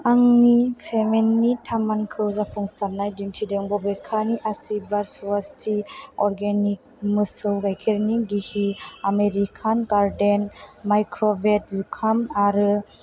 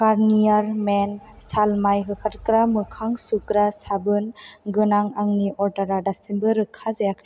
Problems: constant background noise